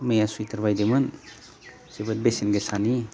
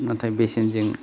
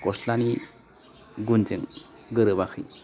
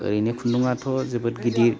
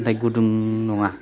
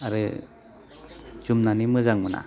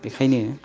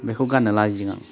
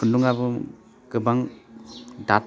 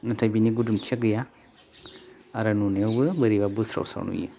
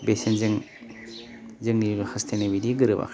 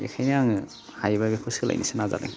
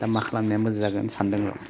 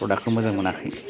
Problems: low volume